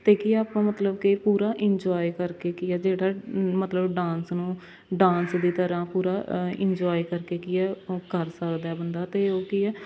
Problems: constant background noise, background conversations at intervals